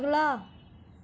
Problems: constant background noise